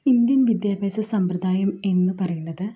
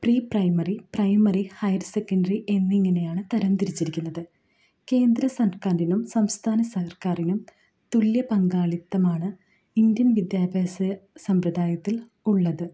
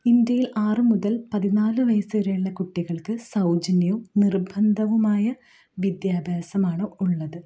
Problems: low volume